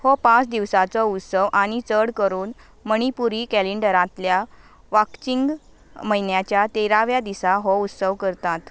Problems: background sounds at intervals